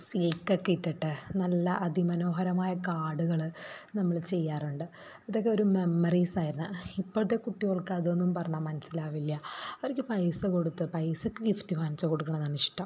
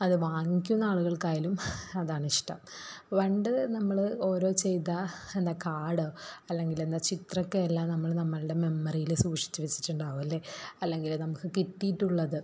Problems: background sounds at intervals